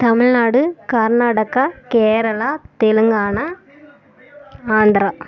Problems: background conversations at intervals